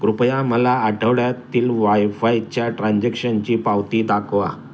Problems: background sounds at intervals